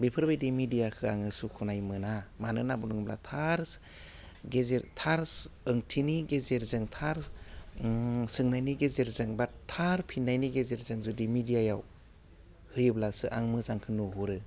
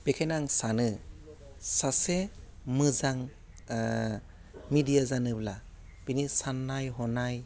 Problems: constant background noise